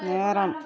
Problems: constant background noise